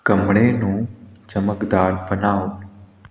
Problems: none marked